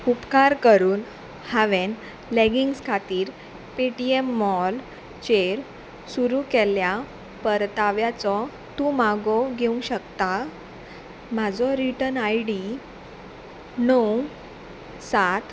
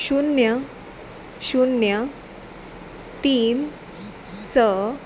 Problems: constant background noise